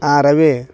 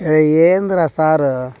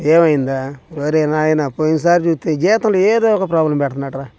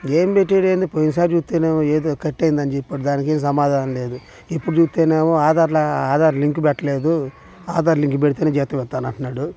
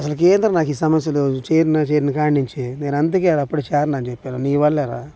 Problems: background conversations at intervals